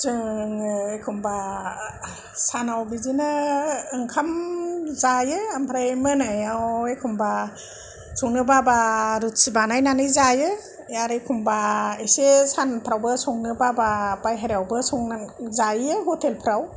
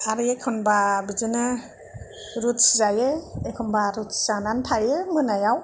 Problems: none marked